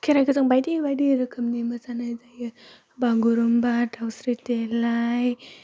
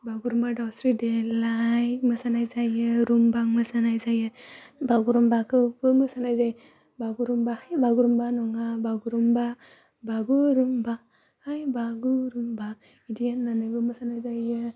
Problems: constant background noise